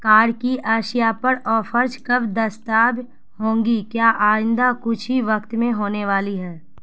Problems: constant background noise